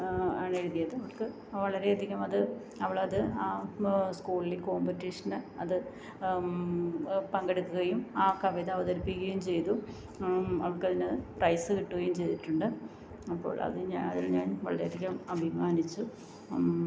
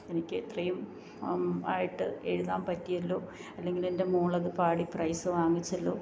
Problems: none marked